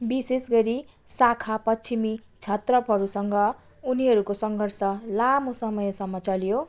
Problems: continuous background conversations